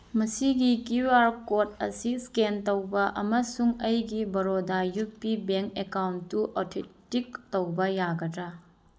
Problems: none marked